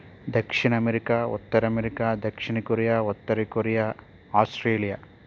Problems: constant background noise